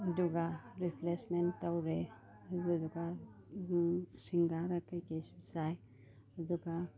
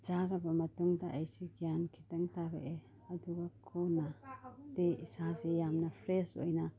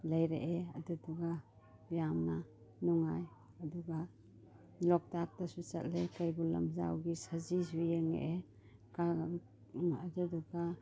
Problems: background sounds at intervals, background conversations at intervals